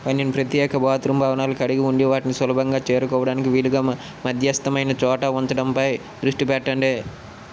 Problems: constant background noise